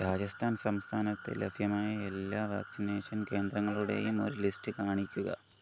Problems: constant background noise, low volume